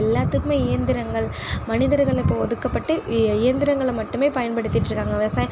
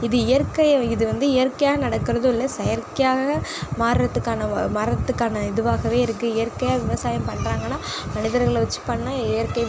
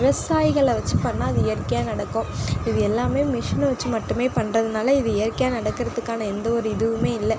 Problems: background sounds at intervals